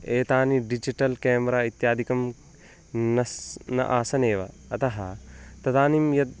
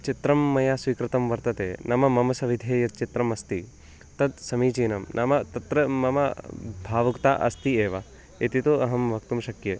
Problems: constant background noise